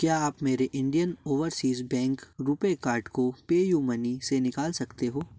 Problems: background sounds at intervals